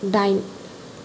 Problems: none marked